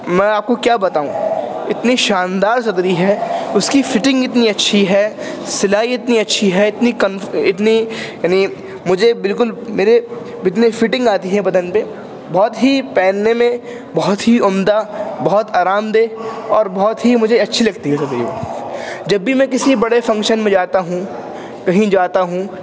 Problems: constant background noise